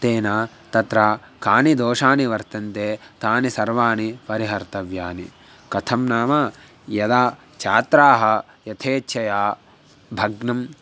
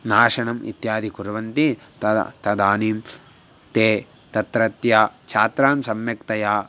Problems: constant background noise